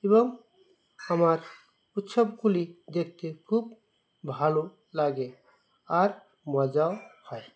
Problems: constant background noise